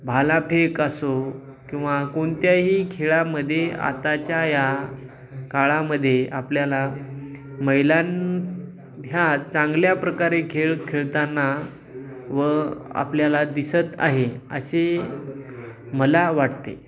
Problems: background sounds at intervals